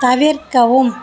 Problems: background sounds at intervals